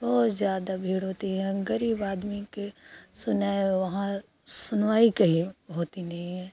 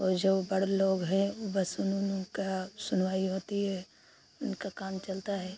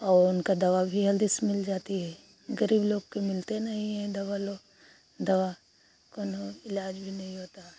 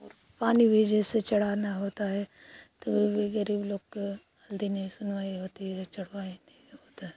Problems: constant background noise